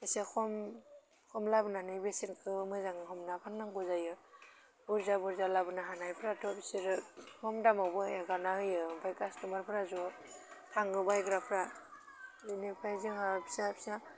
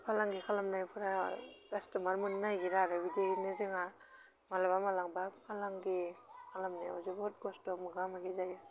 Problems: none marked